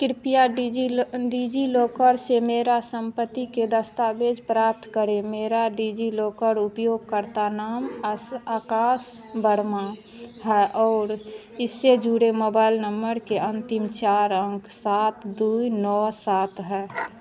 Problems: constant background noise